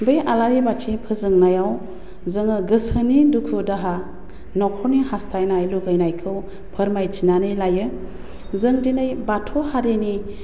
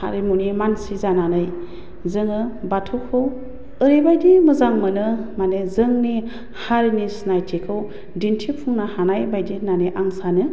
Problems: constant background noise